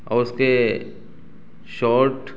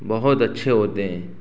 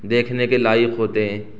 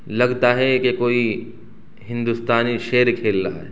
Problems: constant background noise